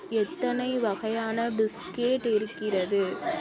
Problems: constant background noise